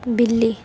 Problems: constant background noise